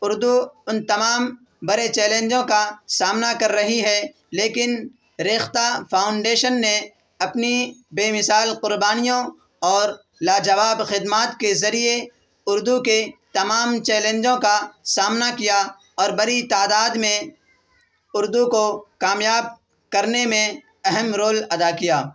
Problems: constant background noise